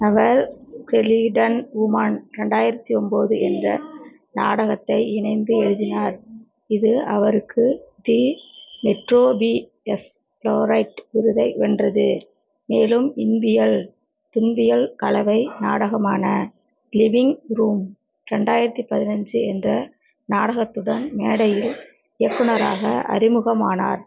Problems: background sounds at intervals